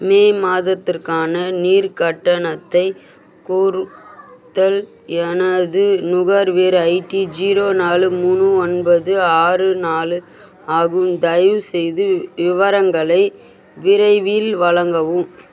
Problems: constant background noise, background conversations at intervals